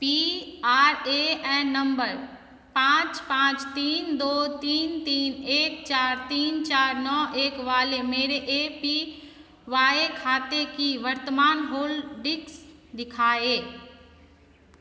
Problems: none marked